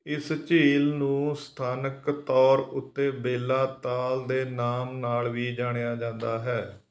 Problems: none marked